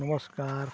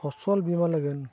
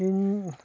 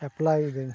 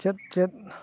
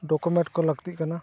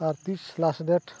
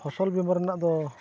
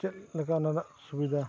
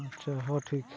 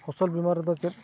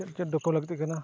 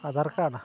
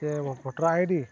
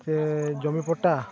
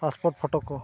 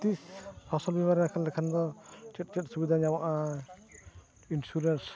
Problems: constant background noise, continuous background conversations